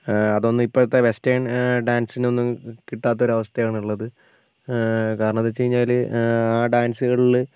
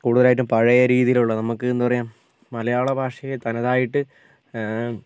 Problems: constant background noise